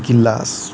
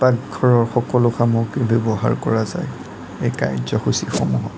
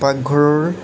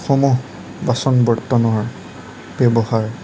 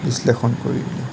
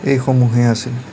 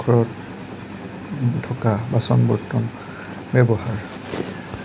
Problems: none marked